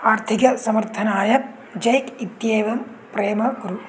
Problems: background sounds at intervals